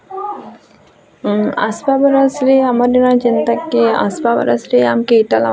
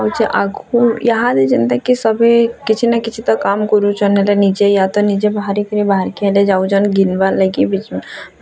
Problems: constant background noise, continuous background conversations